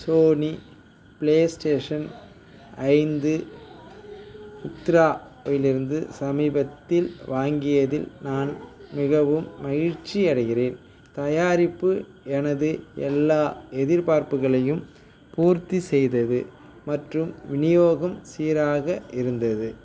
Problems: background sounds at intervals, background conversations at intervals